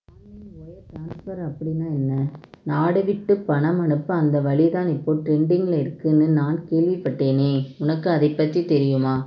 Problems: low volume